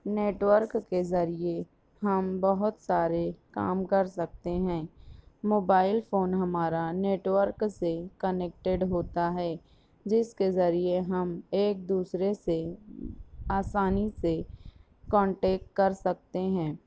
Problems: background sounds at intervals